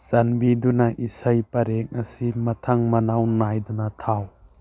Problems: none marked